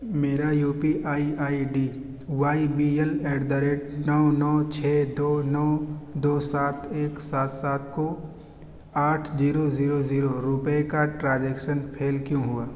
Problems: constant background noise